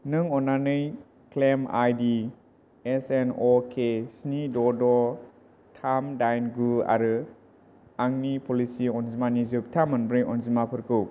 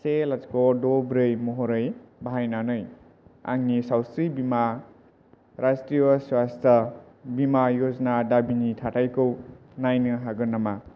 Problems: constant background noise